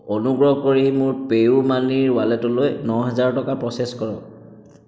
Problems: echo